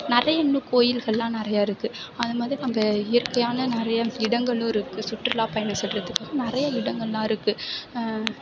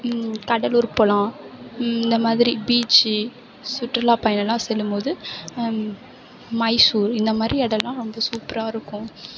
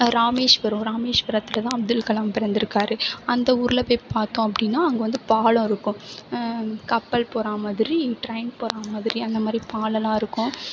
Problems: background sounds at intervals